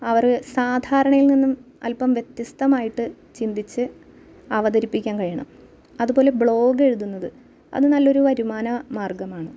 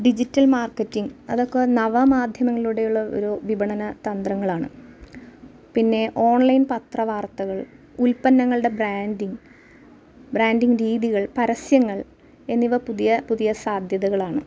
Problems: none marked